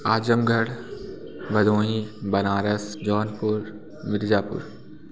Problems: background sounds at intervals, background conversations at intervals